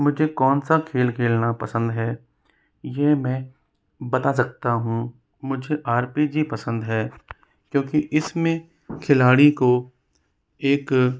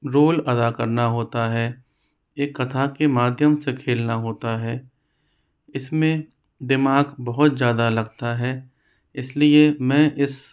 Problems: constant background noise